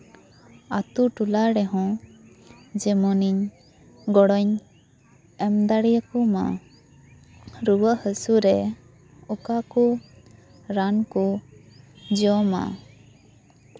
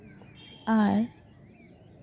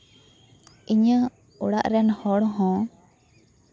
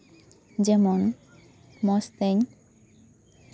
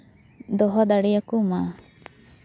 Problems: constant background noise